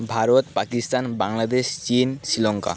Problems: none marked